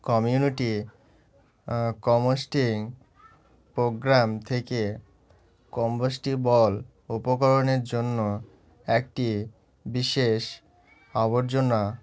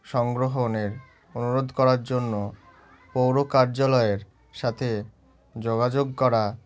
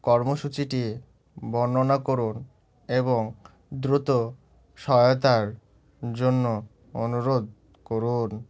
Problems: background sounds at intervals